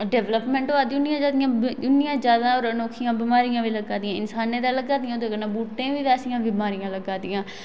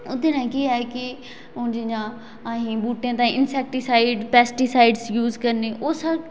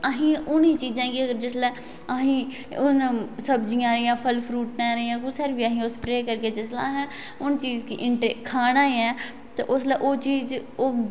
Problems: none marked